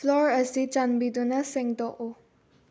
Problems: low volume